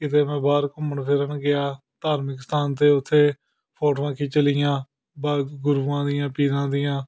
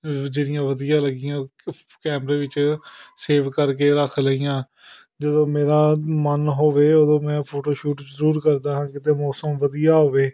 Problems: background sounds at intervals